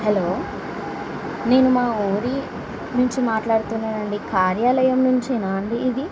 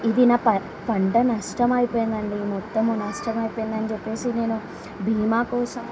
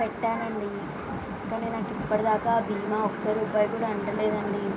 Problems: background sounds at intervals, background conversations at intervals